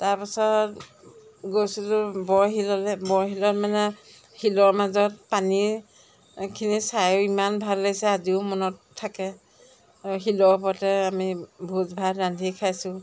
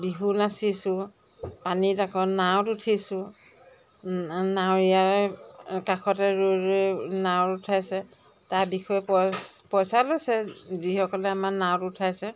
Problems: none marked